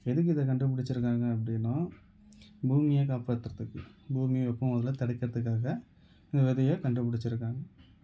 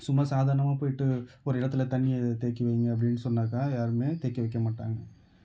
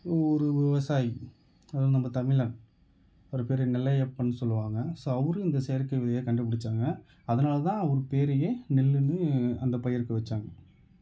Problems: background conversations at intervals